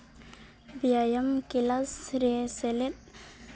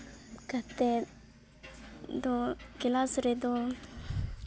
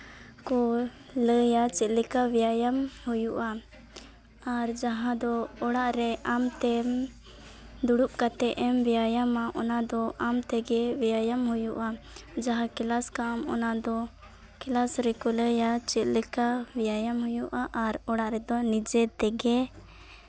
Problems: background sounds at intervals